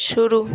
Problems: constant background noise